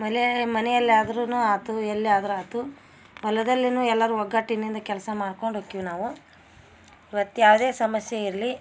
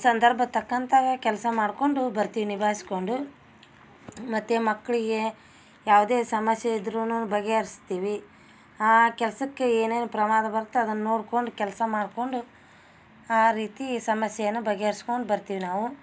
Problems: none marked